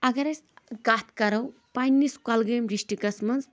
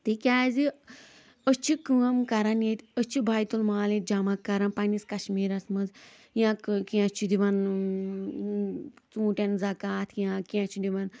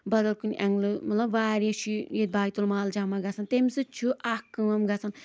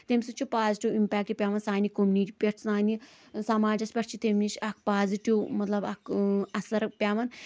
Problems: background sounds at intervals